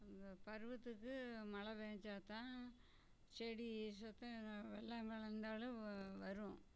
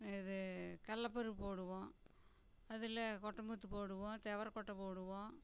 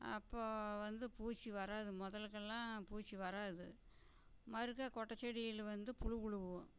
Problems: background sounds at intervals, low volume